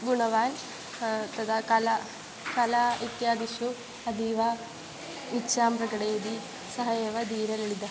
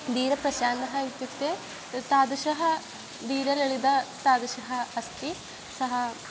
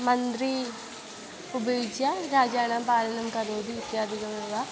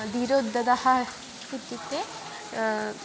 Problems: constant background noise